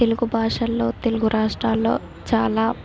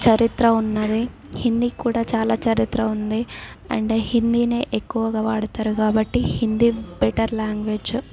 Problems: background sounds at intervals, background conversations at intervals